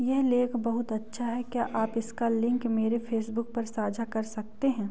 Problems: background sounds at intervals